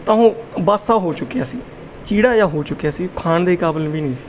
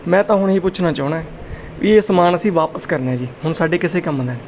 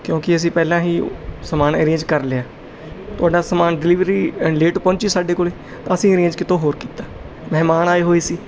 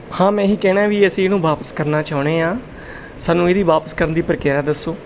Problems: none marked